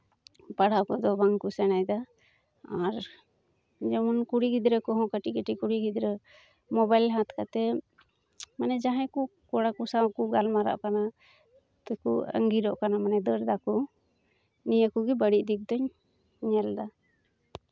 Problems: background sounds at intervals